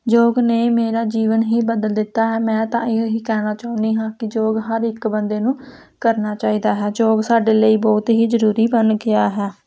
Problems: constant background noise